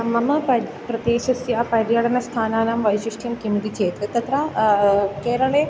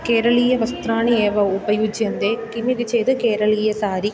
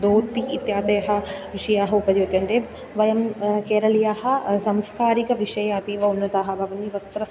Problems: constant background noise